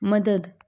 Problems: none marked